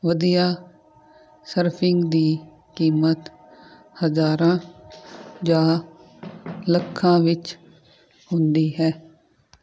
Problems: constant background noise